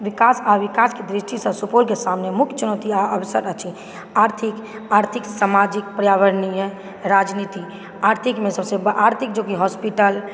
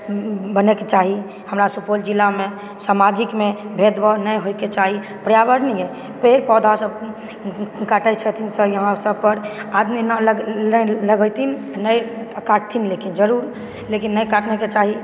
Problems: background sounds at intervals, background conversations at intervals